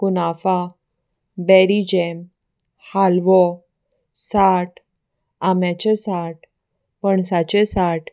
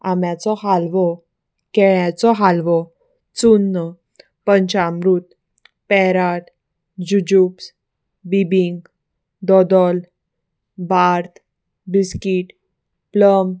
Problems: none marked